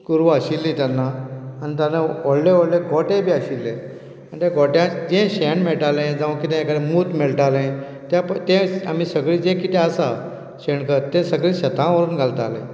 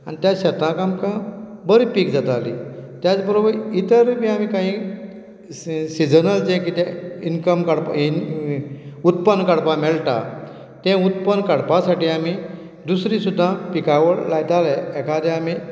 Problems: none marked